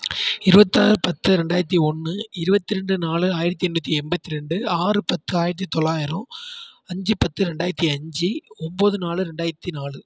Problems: none marked